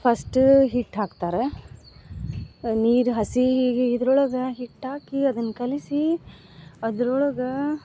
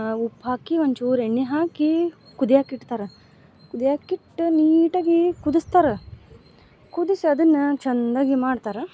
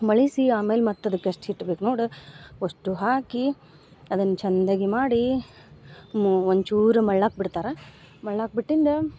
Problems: none marked